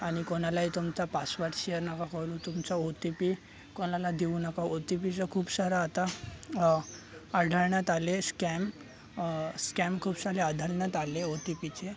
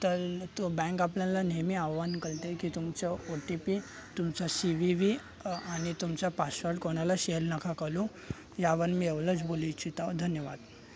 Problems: constant background noise, continuous background conversations